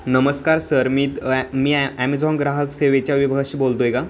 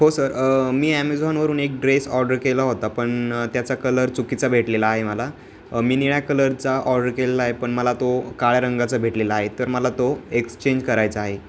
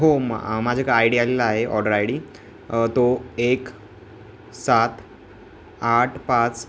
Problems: constant background noise